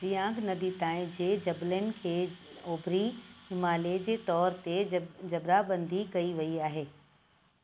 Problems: constant background noise